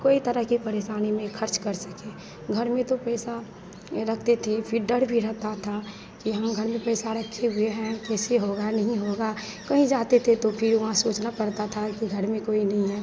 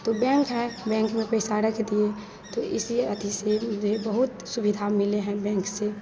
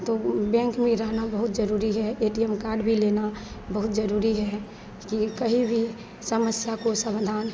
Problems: none marked